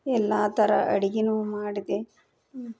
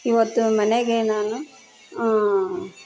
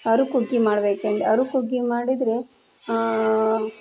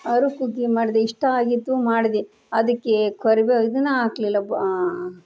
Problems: background conversations at intervals